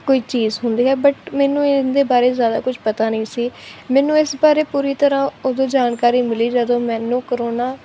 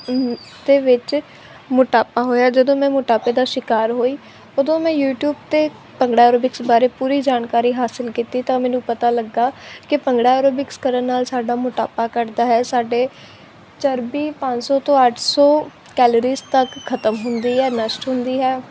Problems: constant background noise